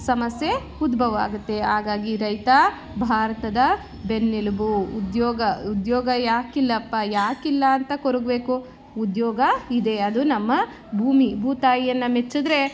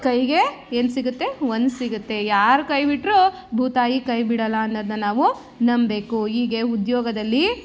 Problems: background sounds at intervals